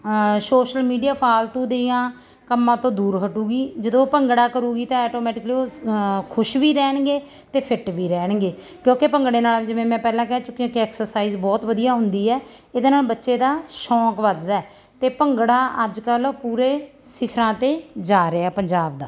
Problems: background sounds at intervals